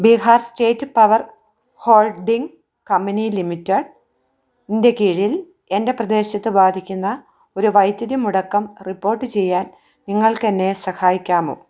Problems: none marked